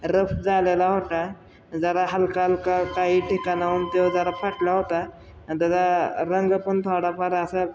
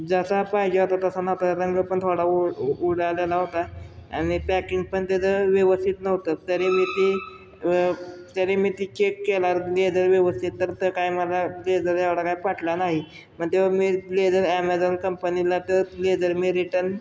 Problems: constant background noise